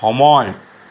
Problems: constant background noise